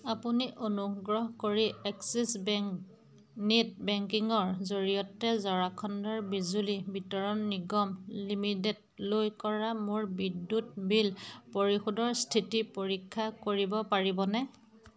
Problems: constant background noise, background conversations at intervals